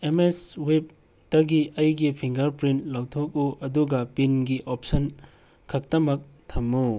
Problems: background sounds at intervals